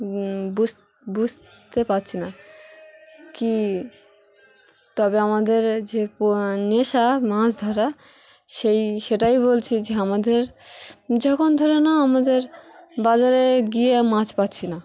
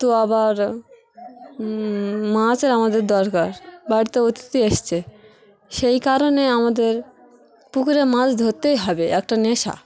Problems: constant background noise, continuous background conversations